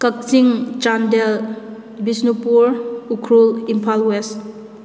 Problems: echo